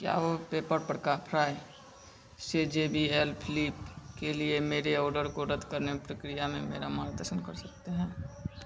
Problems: none marked